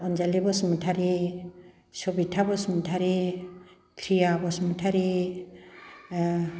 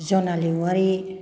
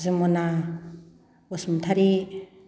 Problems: none marked